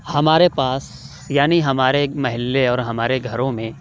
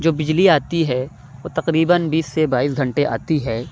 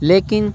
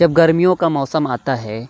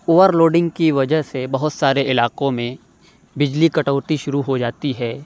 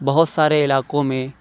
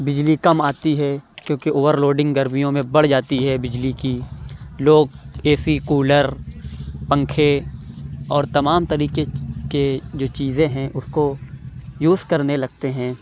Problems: none marked